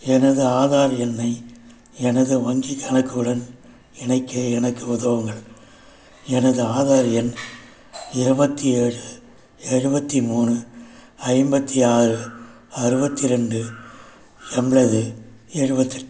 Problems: background sounds at intervals